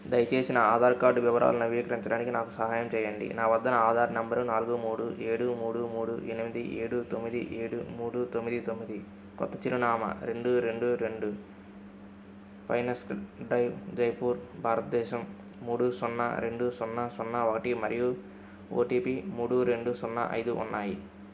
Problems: constant background noise